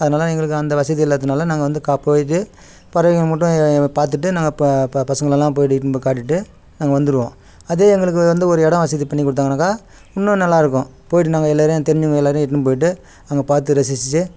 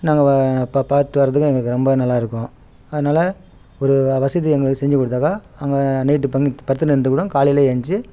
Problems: background sounds at intervals